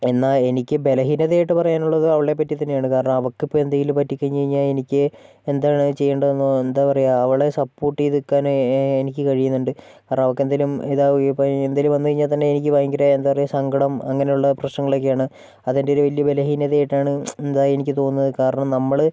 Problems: none marked